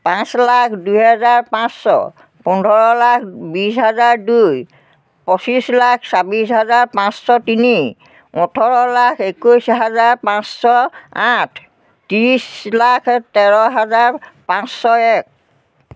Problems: none marked